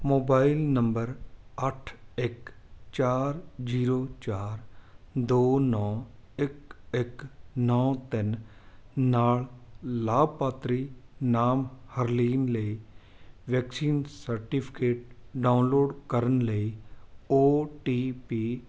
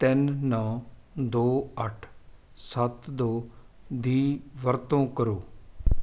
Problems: background sounds at intervals